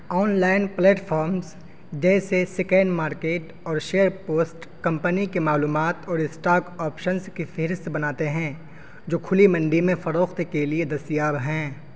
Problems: constant background noise